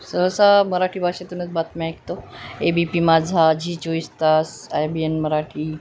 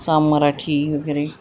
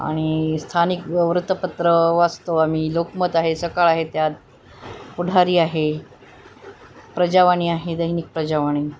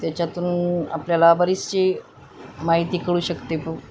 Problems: constant background noise